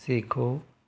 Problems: none marked